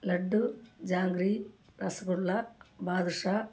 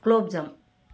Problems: background sounds at intervals